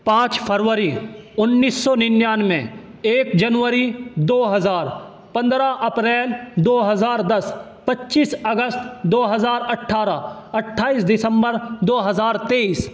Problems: constant background noise